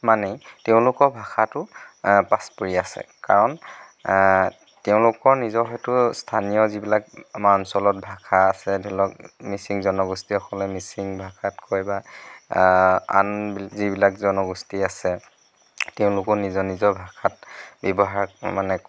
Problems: none marked